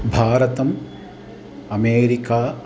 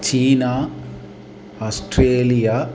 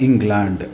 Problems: constant background noise